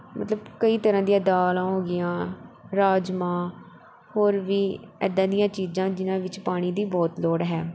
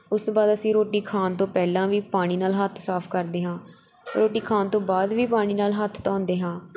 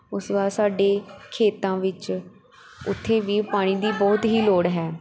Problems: none marked